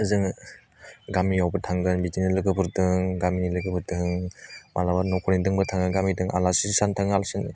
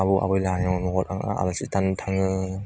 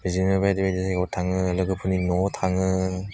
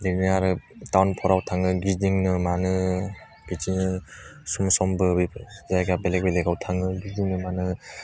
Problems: none marked